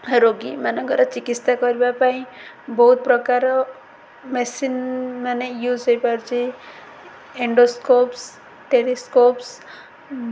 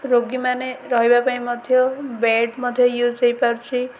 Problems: none marked